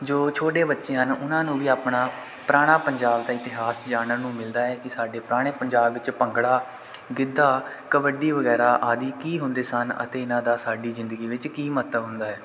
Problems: none marked